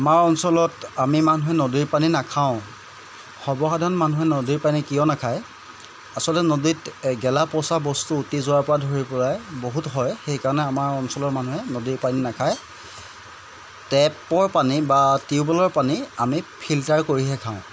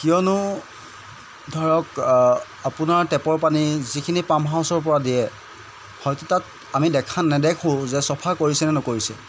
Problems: constant background noise